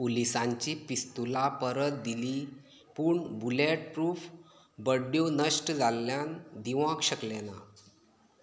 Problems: low volume